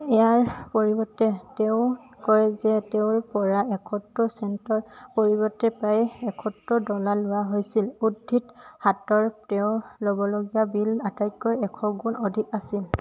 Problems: none marked